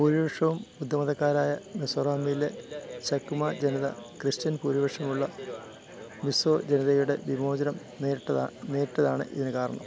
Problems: continuous background conversations